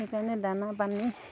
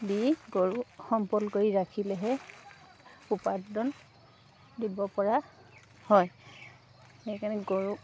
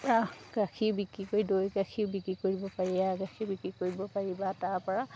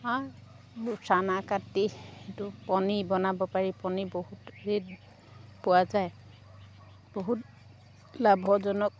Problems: none marked